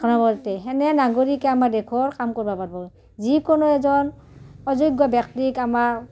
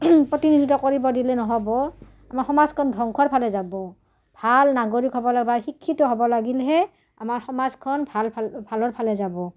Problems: low volume